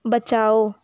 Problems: background sounds at intervals